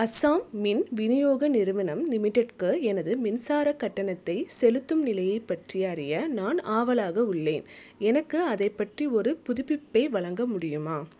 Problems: none marked